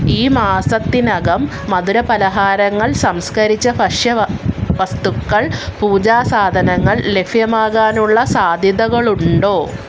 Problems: none marked